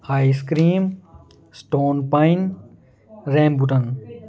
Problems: none marked